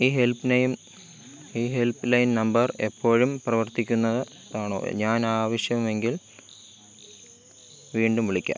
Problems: constant background noise